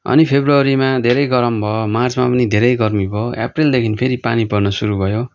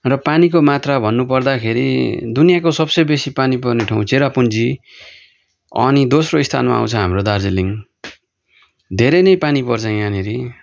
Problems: none marked